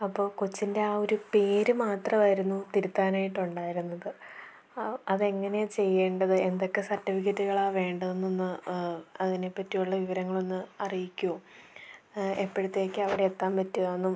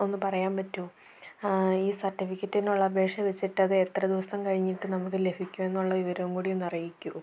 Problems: none marked